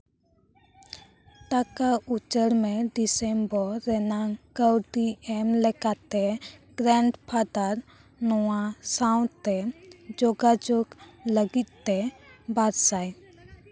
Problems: continuous background conversations